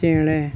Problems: none marked